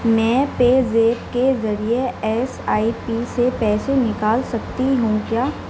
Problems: none marked